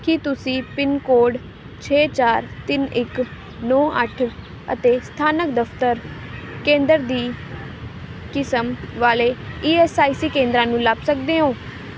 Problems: constant background noise